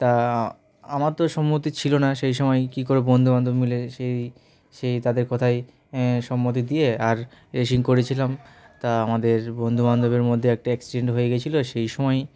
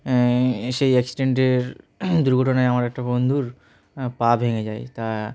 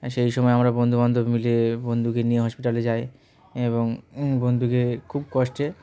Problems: background sounds at intervals, background conversations at intervals